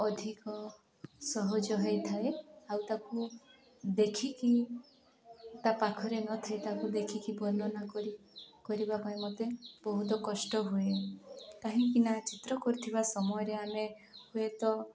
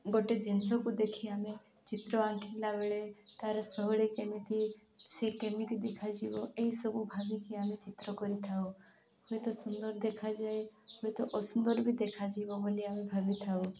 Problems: background sounds at intervals